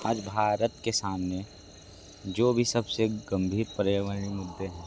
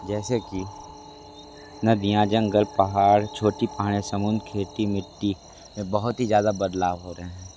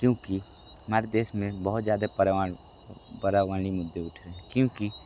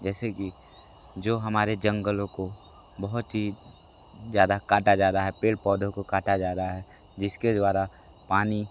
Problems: constant background noise